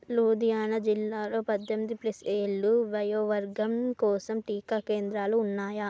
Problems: none marked